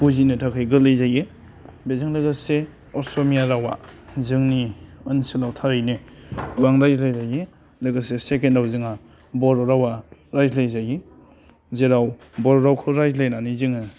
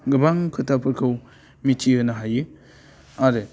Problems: low volume